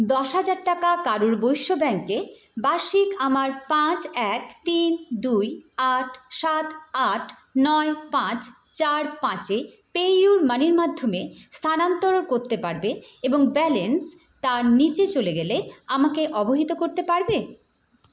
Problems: background sounds at intervals